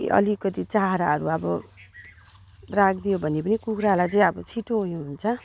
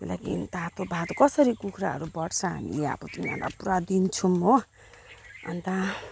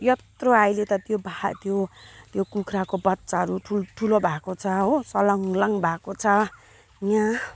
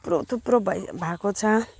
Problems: background sounds at intervals